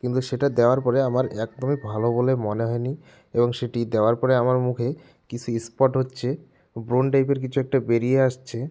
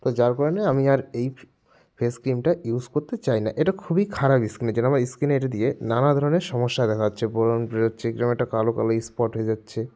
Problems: none marked